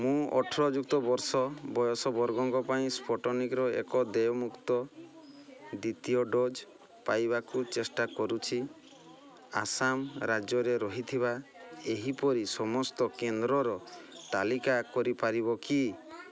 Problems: background sounds at intervals, background conversations at intervals